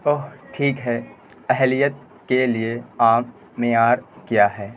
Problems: constant background noise